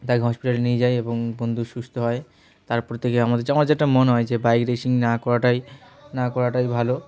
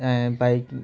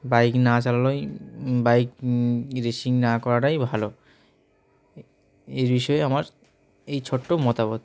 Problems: background sounds at intervals, background conversations at intervals